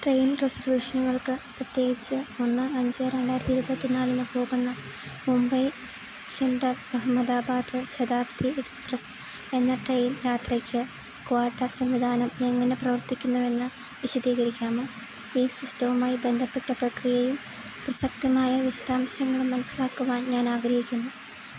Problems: constant background noise